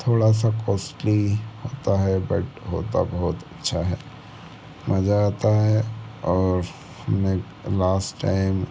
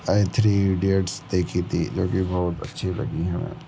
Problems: background sounds at intervals